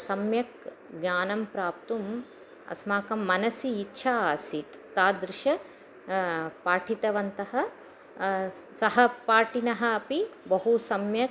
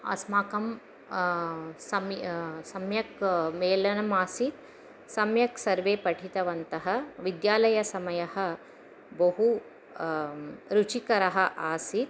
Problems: none marked